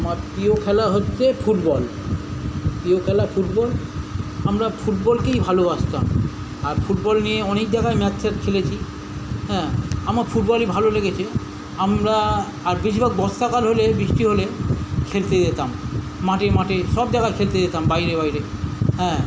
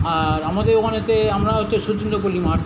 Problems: none marked